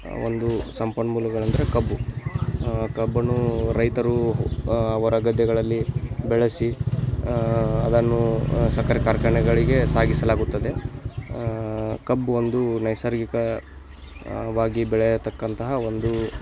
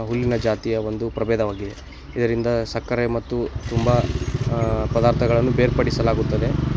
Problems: none marked